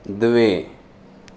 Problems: constant background noise